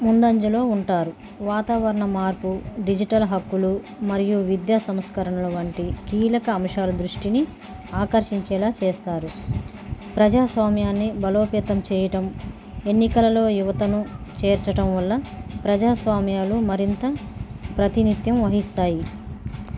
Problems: constant background noise